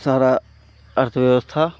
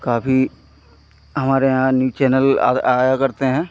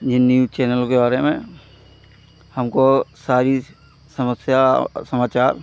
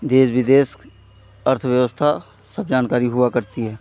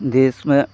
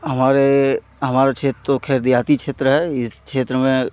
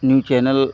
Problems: none marked